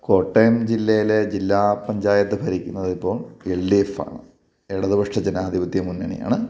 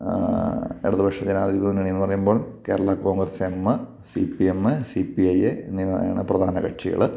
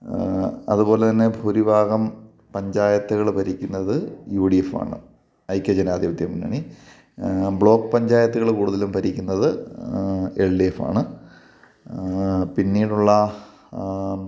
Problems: none marked